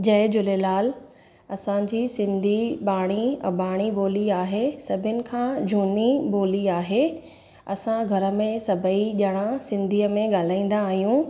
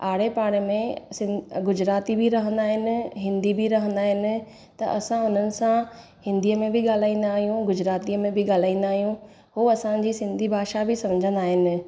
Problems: echo